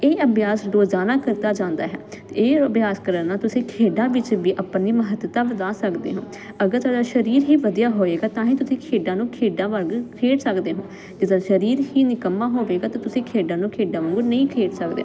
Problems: constant background noise